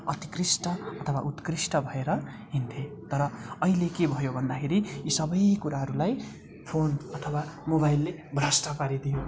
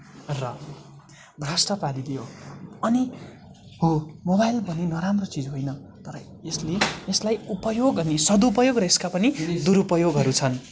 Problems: constant background noise